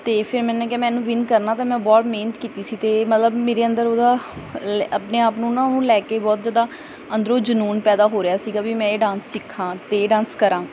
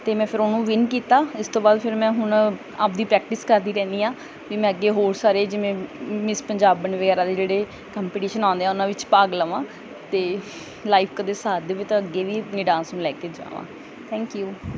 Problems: background sounds at intervals